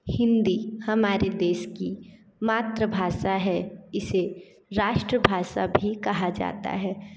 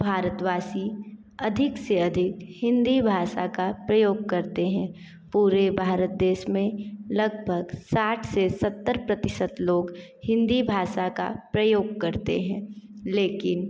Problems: constant background noise